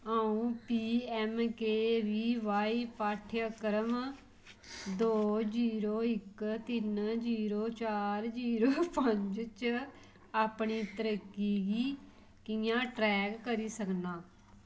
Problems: constant background noise